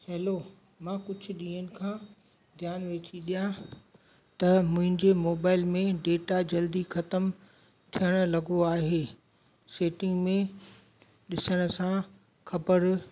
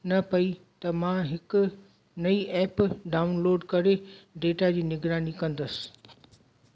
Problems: constant background noise, echo